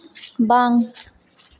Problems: background sounds at intervals